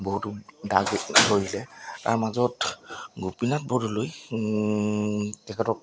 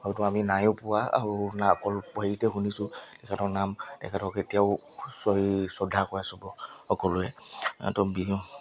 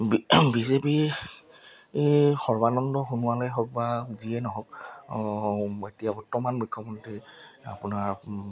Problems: background sounds at intervals